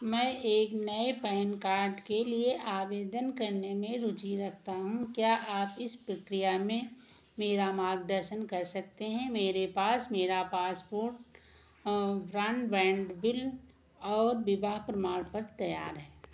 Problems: background sounds at intervals, echo